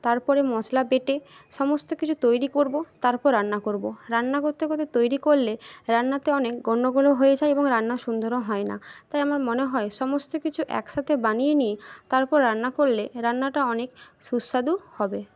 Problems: none marked